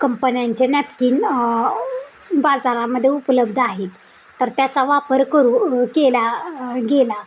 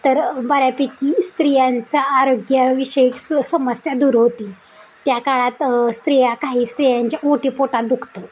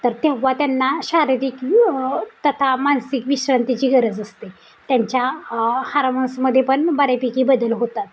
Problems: constant background noise